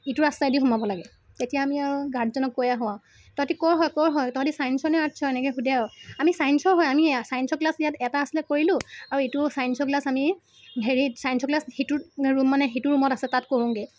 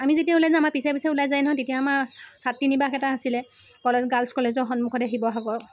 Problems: constant background noise